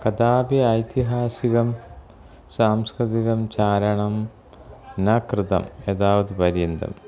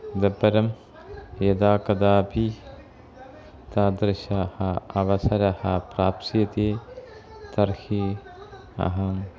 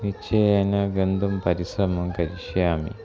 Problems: none marked